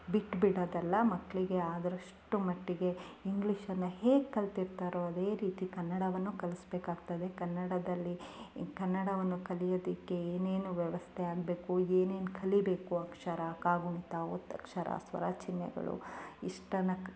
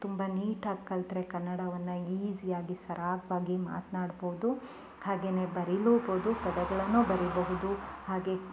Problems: background sounds at intervals